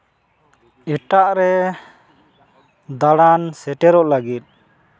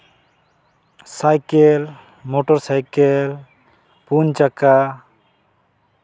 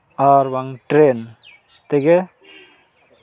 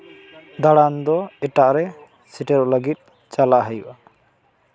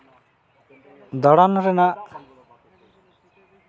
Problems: constant background noise